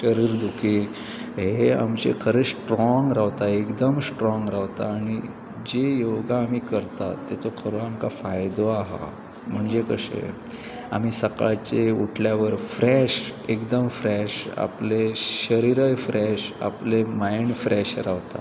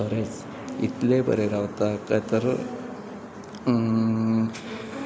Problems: constant background noise, continuous background conversations